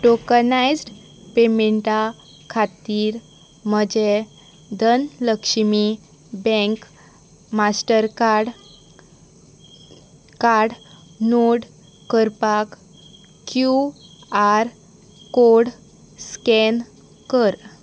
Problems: constant background noise